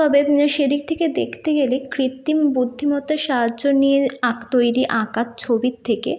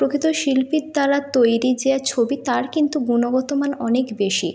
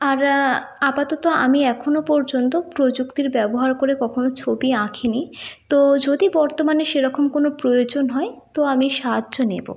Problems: background sounds at intervals